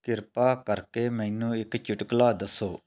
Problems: none marked